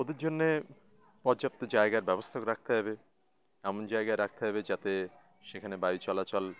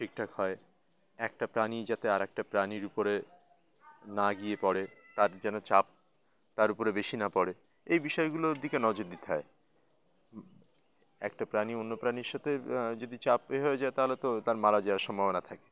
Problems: constant background noise, background conversations at intervals